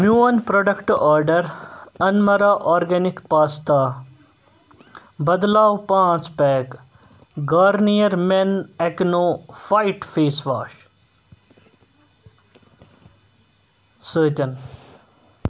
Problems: constant background noise